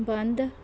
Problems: background sounds at intervals